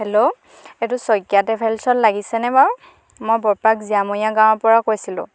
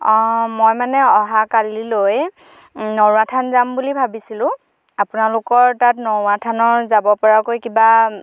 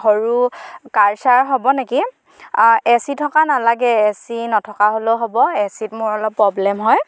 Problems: none marked